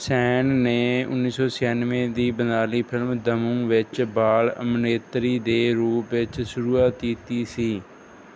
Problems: background sounds at intervals